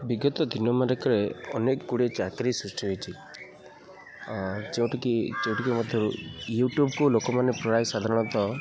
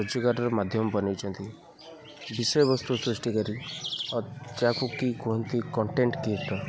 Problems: constant background noise, continuous background conversations